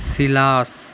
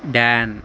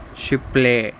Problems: constant background noise